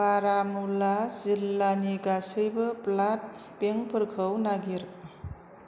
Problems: constant background noise